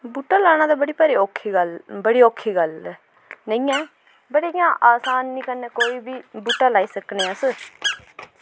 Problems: background sounds at intervals